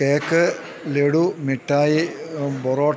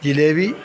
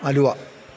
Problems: constant background noise